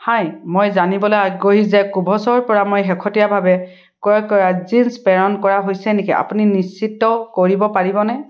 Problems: none marked